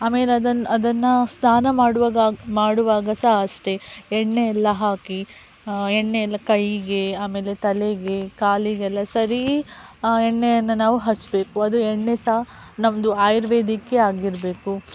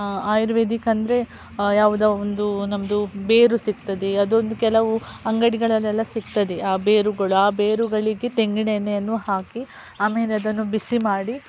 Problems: none marked